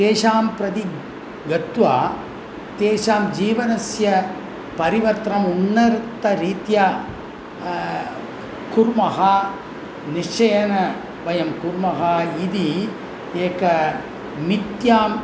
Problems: constant background noise